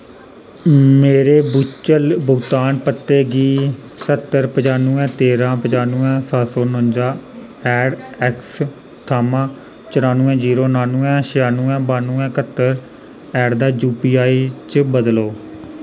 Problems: constant background noise